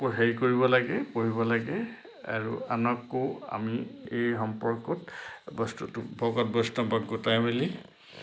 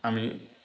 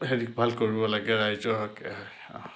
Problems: background sounds at intervals